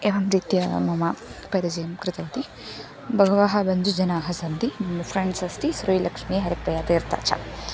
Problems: constant background noise, background conversations at intervals